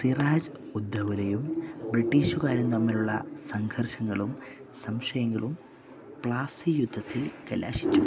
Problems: background sounds at intervals